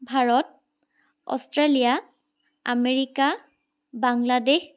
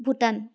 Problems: none marked